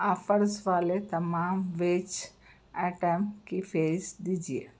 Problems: none marked